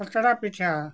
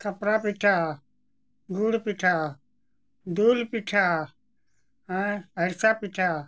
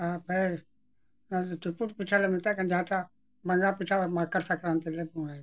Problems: background sounds at intervals